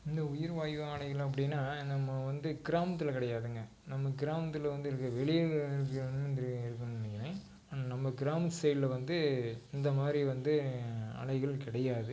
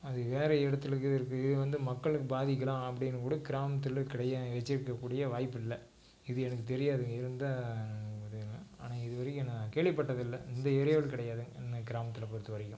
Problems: low volume